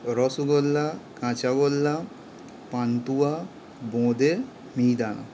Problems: constant background noise